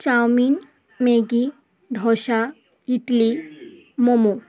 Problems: constant background noise, continuous background conversations